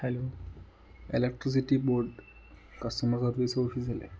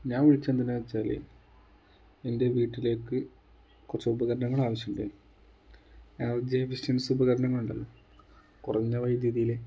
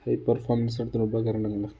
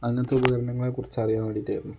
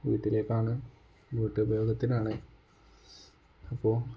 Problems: none marked